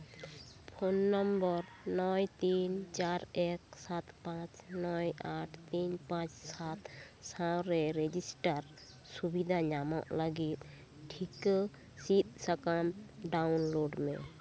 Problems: none marked